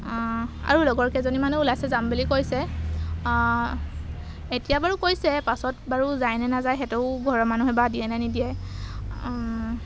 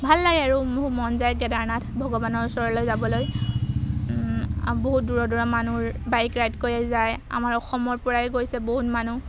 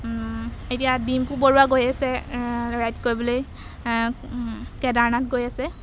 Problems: background sounds at intervals